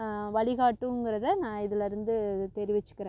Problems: constant background noise